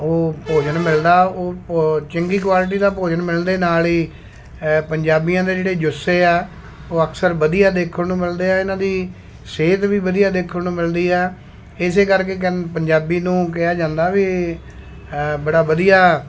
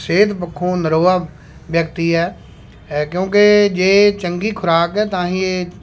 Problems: constant background noise